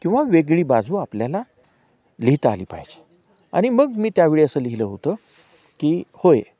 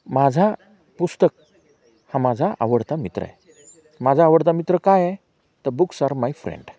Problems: constant background noise, background conversations at intervals